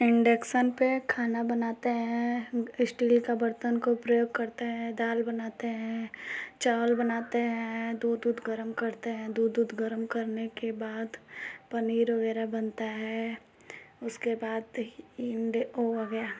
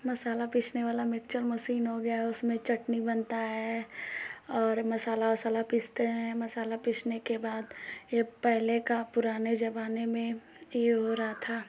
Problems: constant background noise